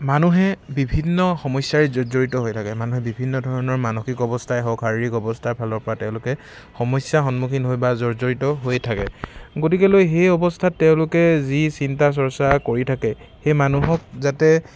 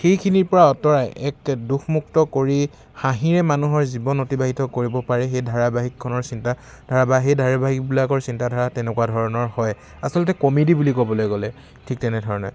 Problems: constant background noise